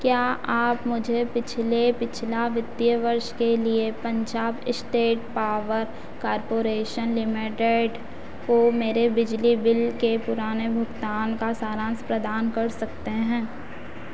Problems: constant background noise